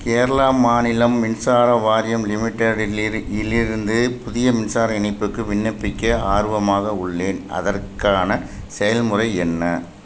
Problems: constant background noise